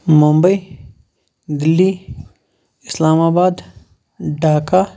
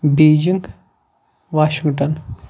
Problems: background sounds at intervals